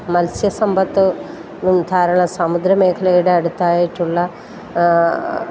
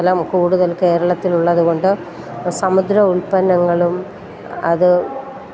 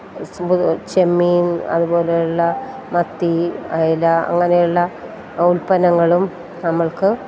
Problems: constant background noise